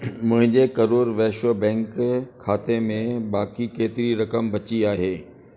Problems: constant background noise, echo